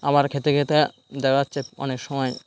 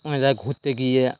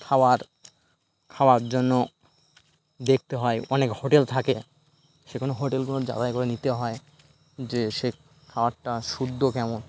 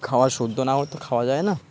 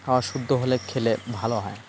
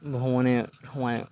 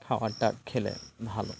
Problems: constant background noise